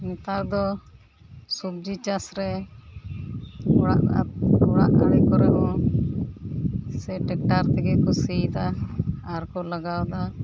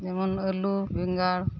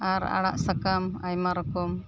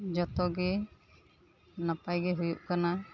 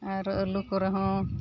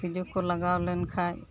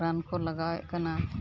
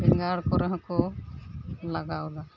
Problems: constant background noise, background conversations at intervals